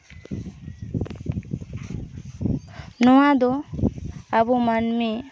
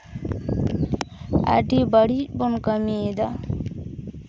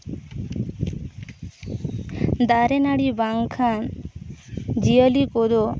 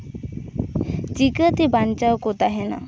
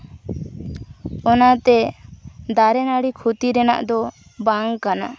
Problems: constant background noise